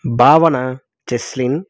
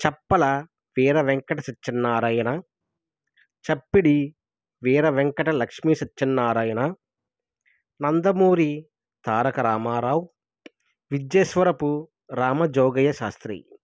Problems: none marked